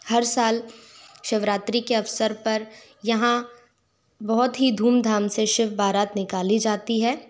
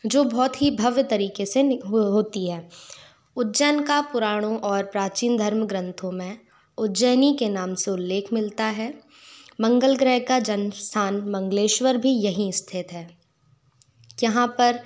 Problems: background sounds at intervals